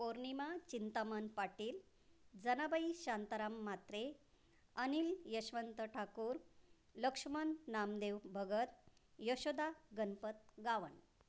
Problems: none marked